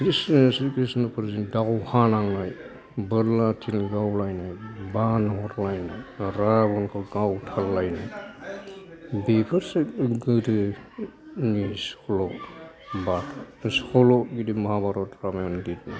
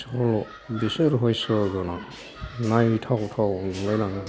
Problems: background conversations at intervals